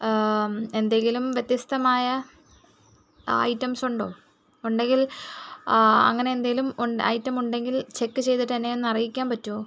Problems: none marked